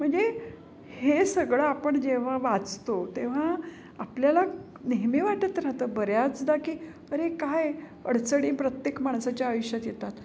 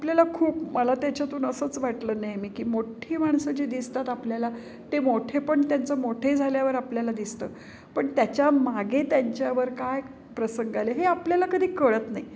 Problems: constant background noise, background conversations at intervals